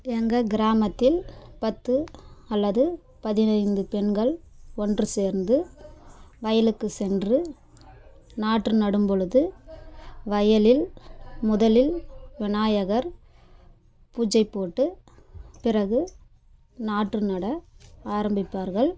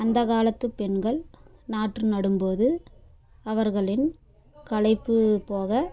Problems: background sounds at intervals